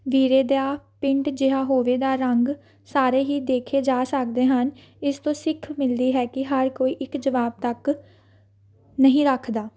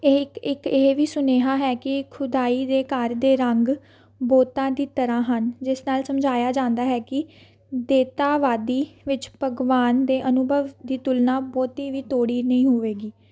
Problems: background sounds at intervals